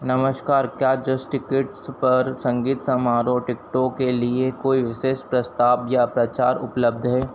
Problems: none marked